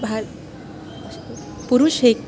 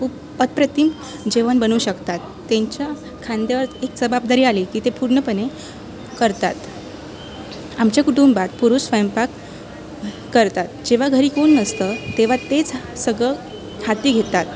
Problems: constant background noise